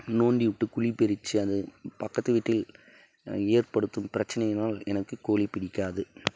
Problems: none marked